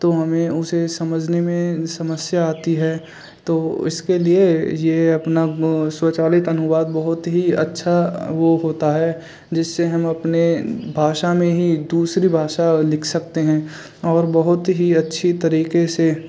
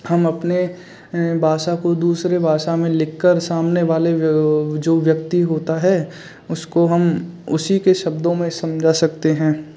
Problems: none marked